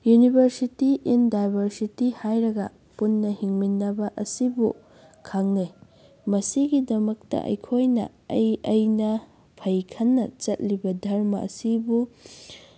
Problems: background sounds at intervals